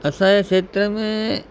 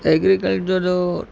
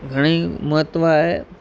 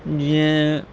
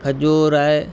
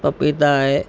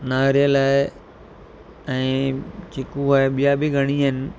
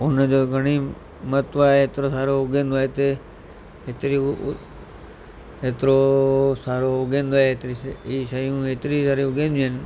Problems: constant background noise